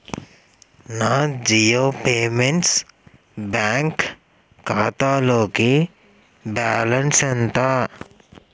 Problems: none marked